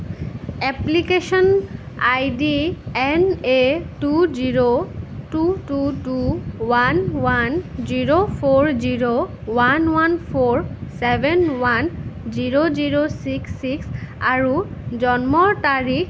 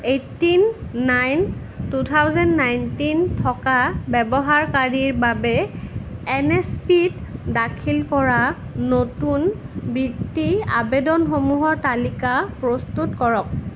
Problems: constant background noise